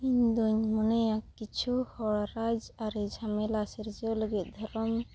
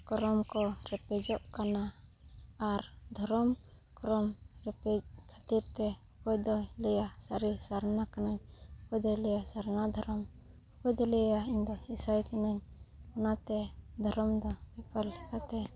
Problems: background sounds at intervals, background conversations at intervals